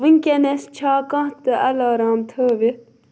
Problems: none marked